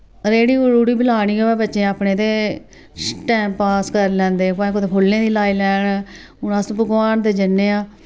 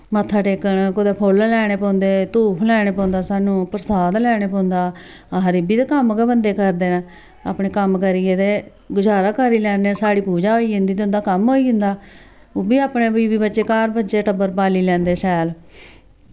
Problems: none marked